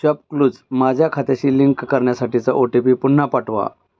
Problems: background sounds at intervals